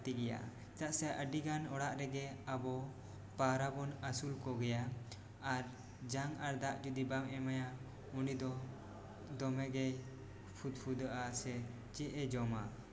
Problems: background sounds at intervals